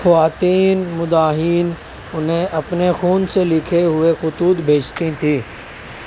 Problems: constant background noise